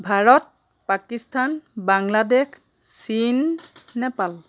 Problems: background sounds at intervals